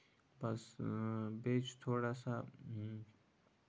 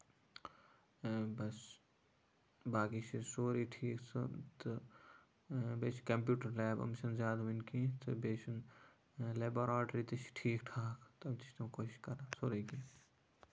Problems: none marked